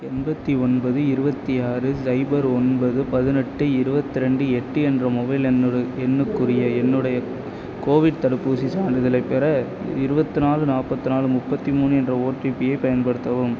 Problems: constant background noise